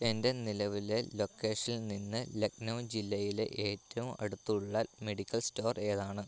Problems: none marked